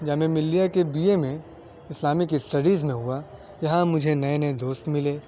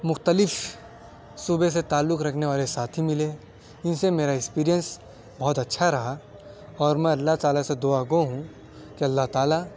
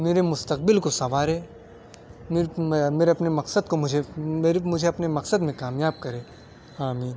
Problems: background sounds at intervals, background conversations at intervals